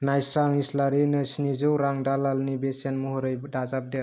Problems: none marked